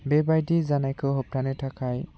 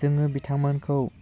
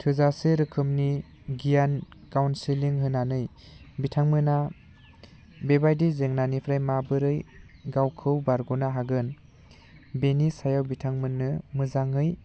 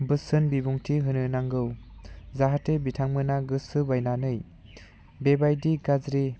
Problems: low volume